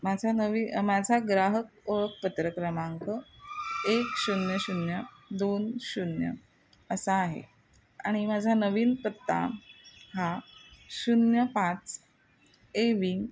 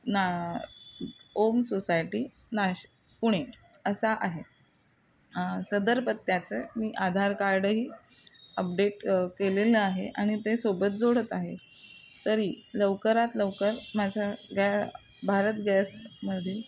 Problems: constant background noise, continuous background conversations